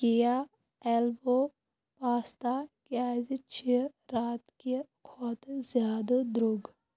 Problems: constant background noise